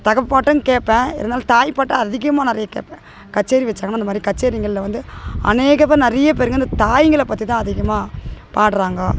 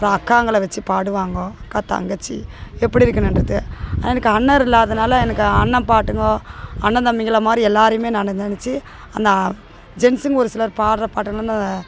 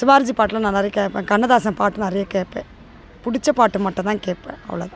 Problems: constant background noise, background conversations at intervals